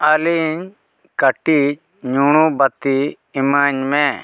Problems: none marked